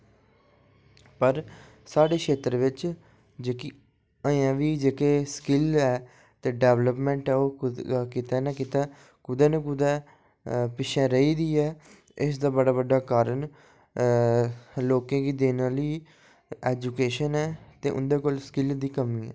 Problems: low volume